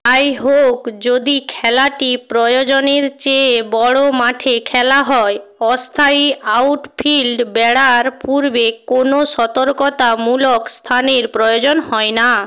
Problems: constant background noise